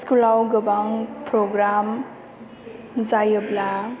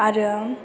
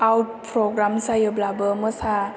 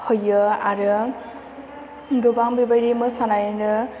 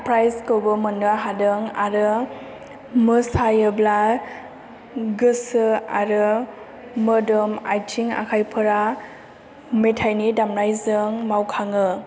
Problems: low volume